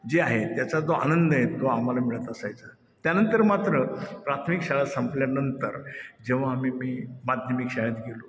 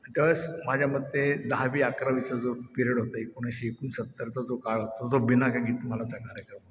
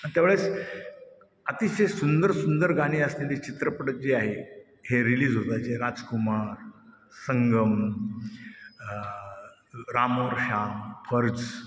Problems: constant background noise, echo